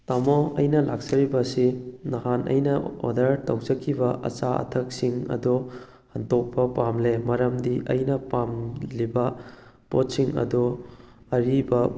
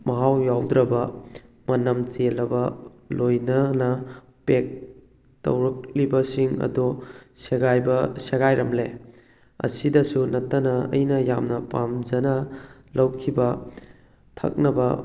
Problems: background sounds at intervals